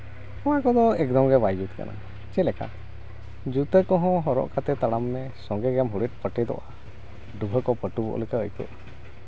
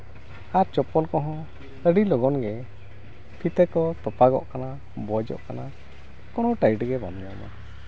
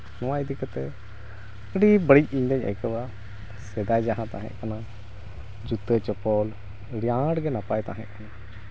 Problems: constant background noise